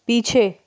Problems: none marked